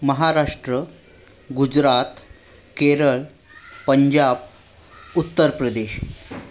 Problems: background sounds at intervals, background conversations at intervals